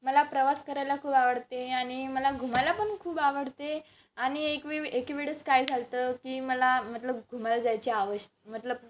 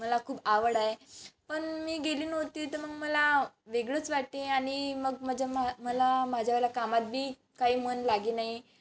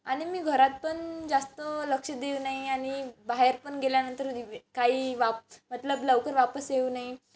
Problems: background sounds at intervals